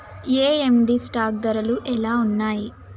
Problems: none marked